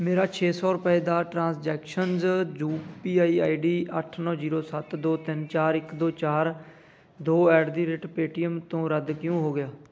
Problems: none marked